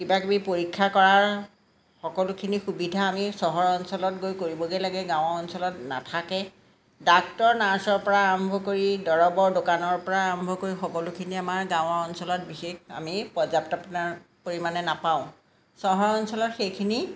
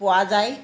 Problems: none marked